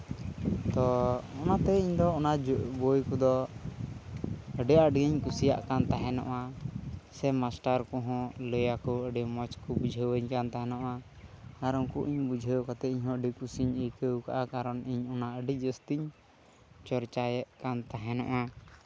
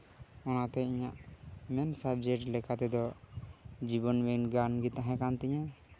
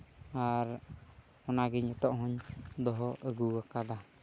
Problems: none marked